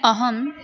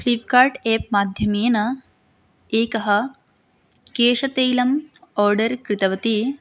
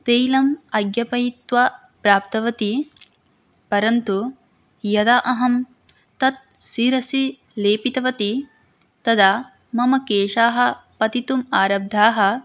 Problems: background conversations at intervals